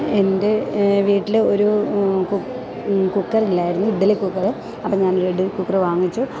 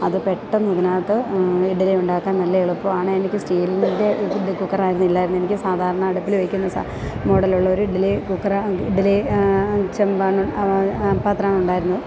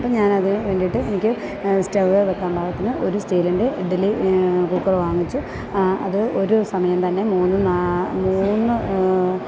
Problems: background sounds at intervals